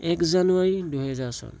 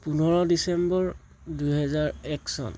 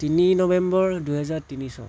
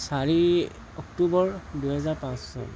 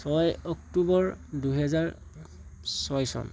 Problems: constant background noise